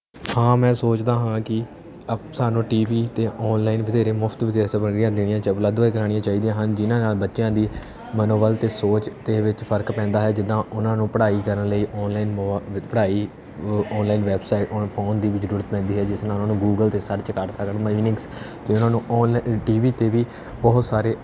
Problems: background sounds at intervals